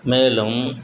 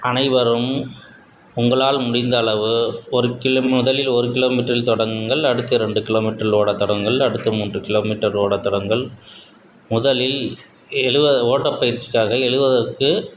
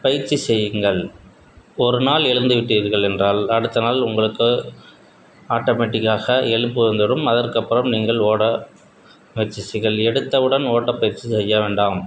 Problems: background sounds at intervals